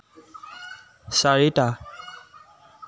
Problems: constant background noise